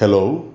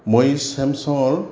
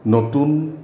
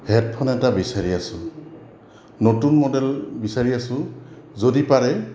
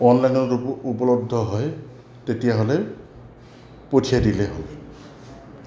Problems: constant background noise